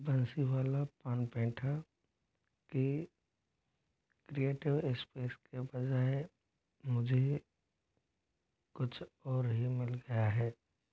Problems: constant background noise